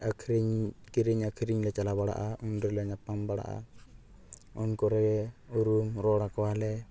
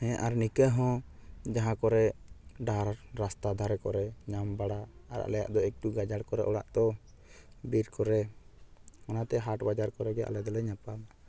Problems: none marked